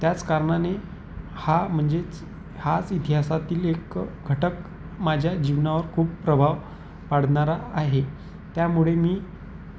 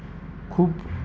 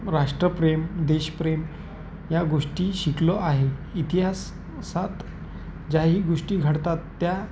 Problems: constant background noise